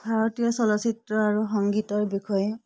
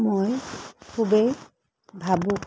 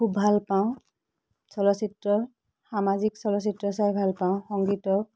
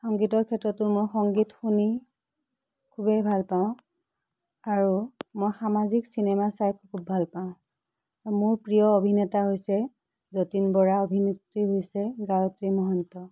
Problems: background sounds at intervals